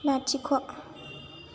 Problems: low volume